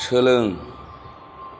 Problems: background sounds at intervals